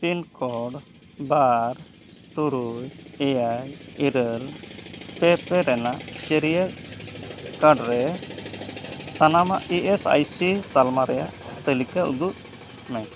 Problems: constant background noise